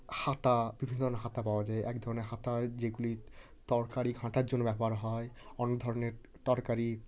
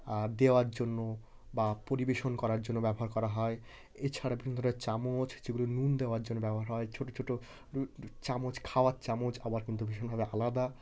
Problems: background sounds at intervals, continuous background conversations